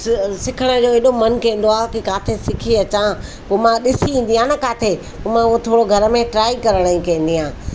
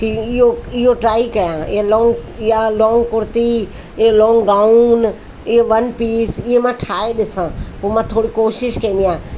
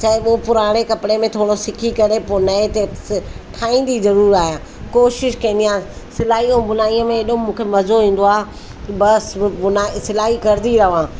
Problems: constant background noise, echo